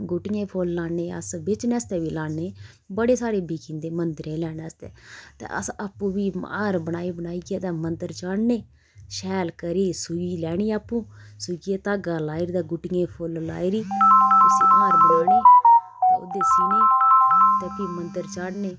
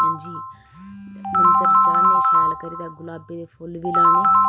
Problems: constant background noise